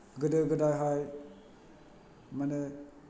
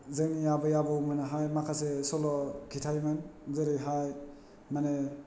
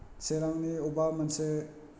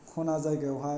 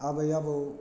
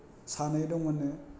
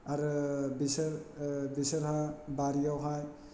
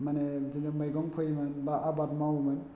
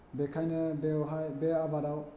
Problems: none marked